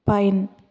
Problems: none marked